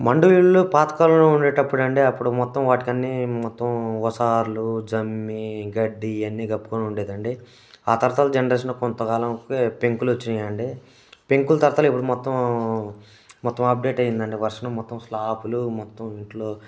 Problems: none marked